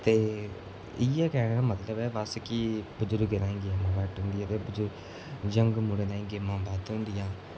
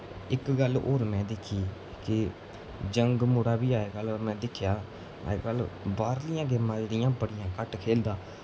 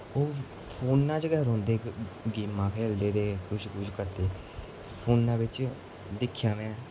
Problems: constant background noise